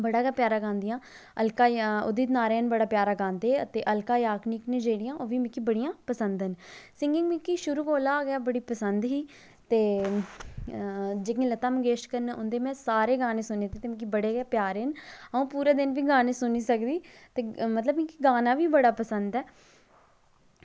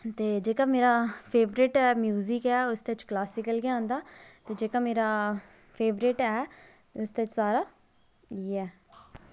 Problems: low volume